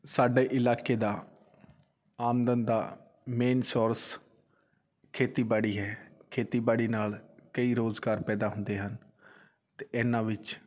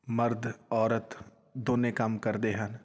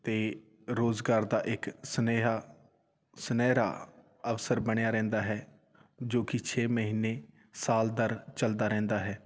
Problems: none marked